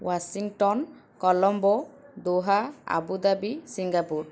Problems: none marked